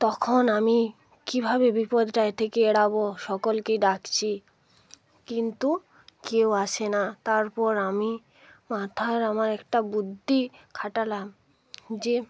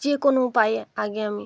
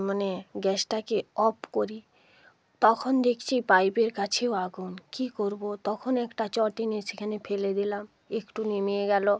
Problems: background conversations at intervals